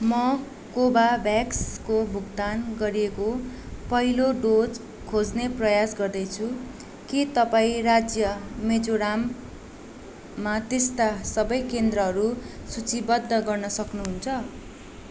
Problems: constant background noise